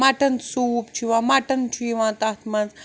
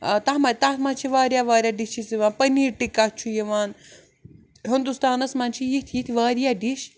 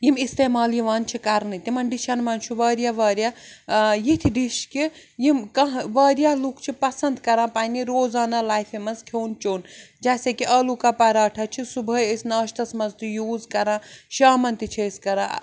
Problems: none marked